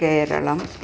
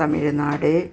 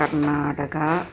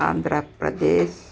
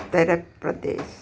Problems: background sounds at intervals